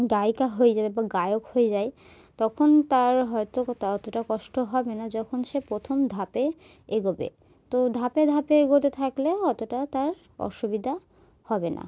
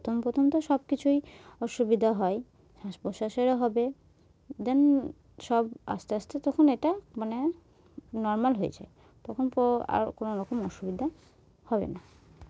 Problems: background sounds at intervals